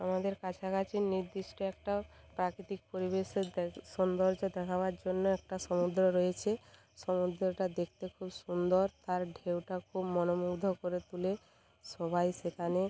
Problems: background conversations at intervals